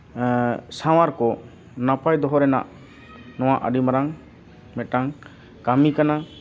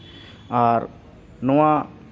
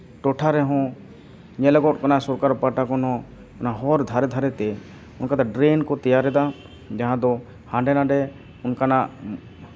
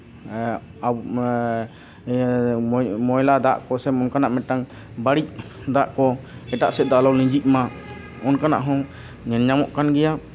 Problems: constant background noise, continuous background conversations